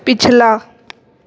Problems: background sounds at intervals